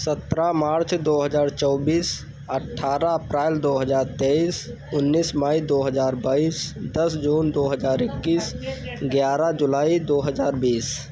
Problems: none marked